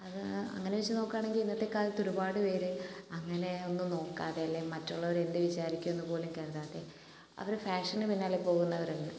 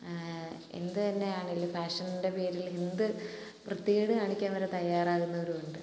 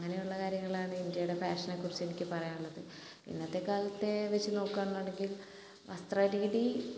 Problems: constant background noise